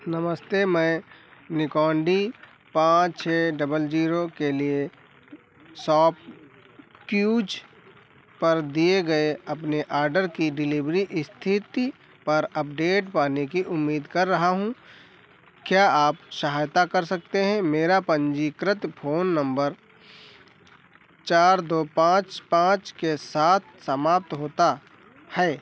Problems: none marked